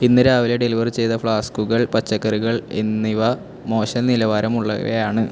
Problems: constant background noise